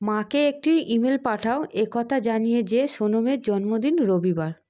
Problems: background sounds at intervals